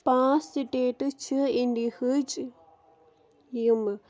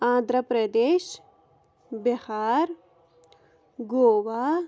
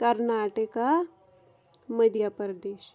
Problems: background sounds at intervals